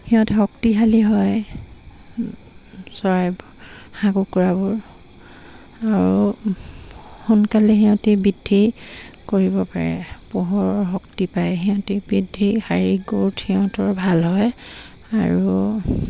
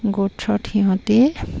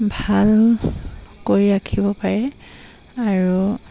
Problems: constant background noise